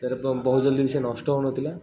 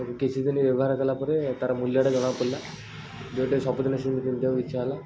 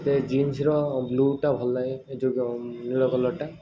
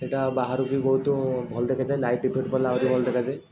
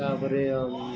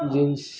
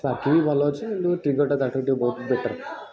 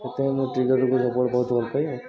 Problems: constant background noise, continuous background conversations